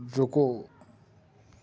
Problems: background conversations at intervals